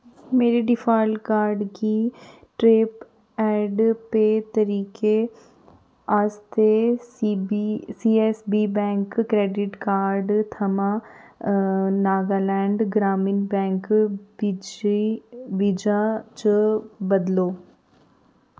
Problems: none marked